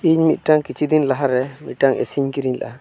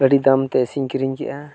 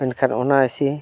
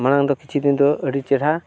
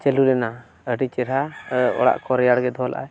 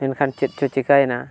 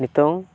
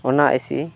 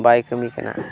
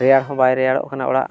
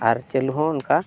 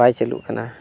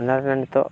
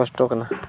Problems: none marked